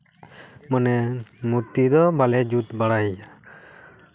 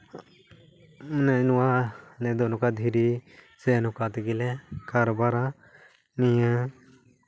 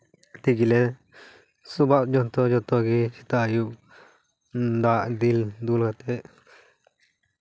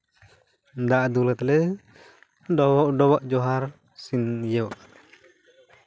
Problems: none marked